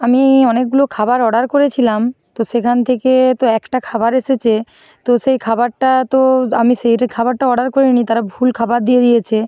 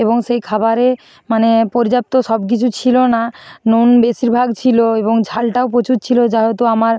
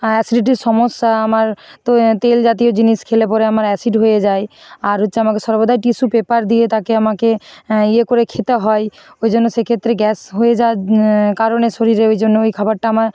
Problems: constant background noise